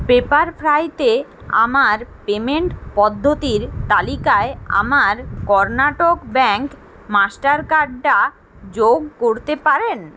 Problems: constant background noise